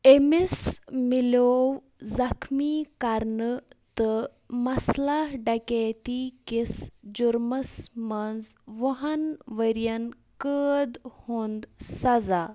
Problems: none marked